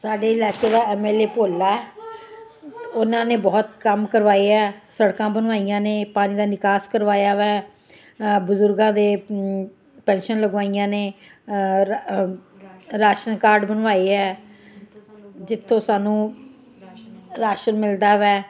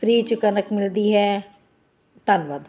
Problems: continuous background conversations